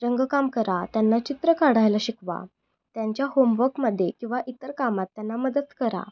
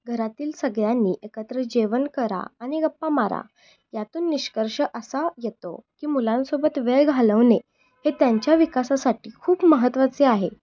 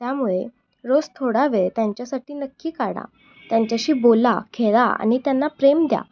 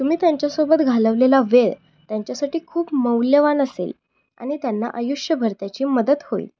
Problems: none marked